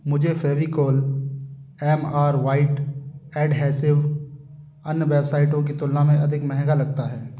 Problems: constant background noise